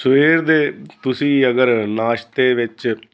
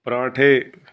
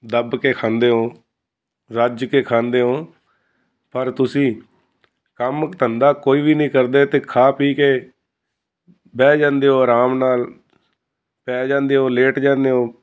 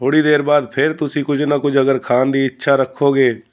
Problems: constant background noise